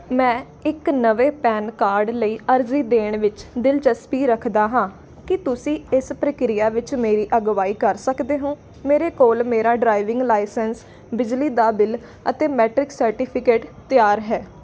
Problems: constant background noise